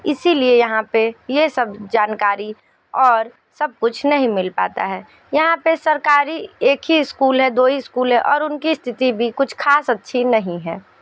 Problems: none marked